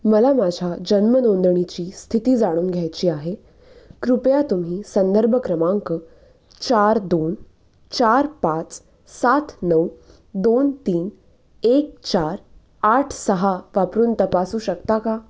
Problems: constant background noise, background conversations at intervals